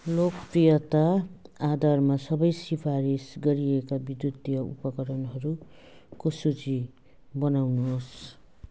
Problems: background sounds at intervals